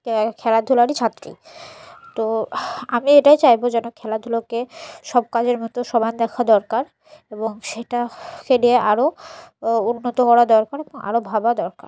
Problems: none marked